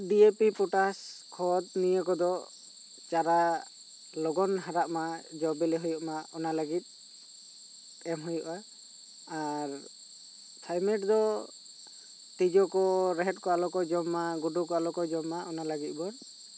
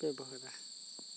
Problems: constant background noise